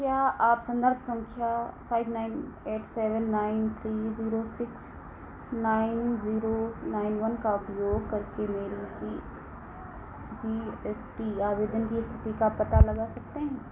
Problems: none marked